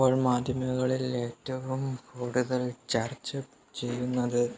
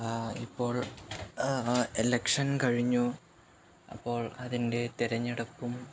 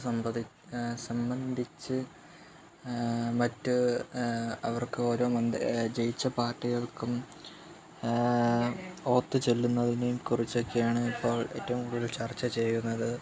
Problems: background sounds at intervals, low volume